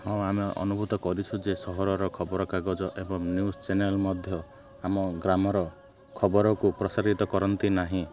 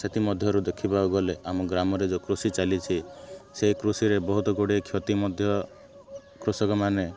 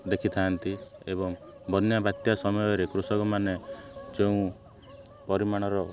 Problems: constant background noise